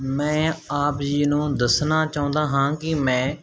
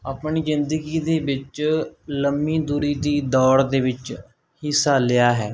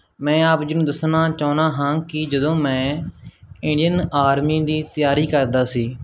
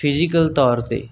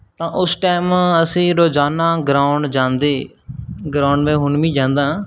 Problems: none marked